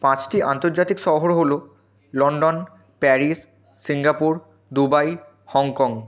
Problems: background conversations at intervals